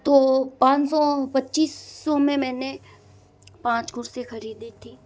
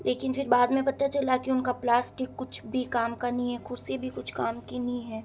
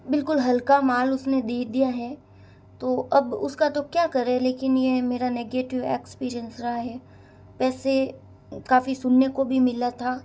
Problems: none marked